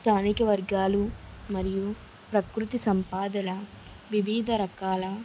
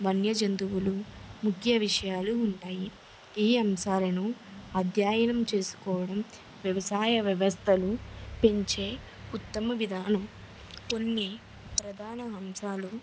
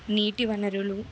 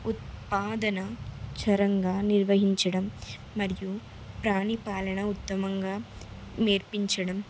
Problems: none marked